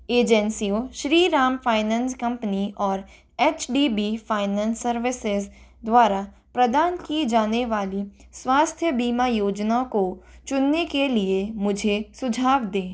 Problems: none marked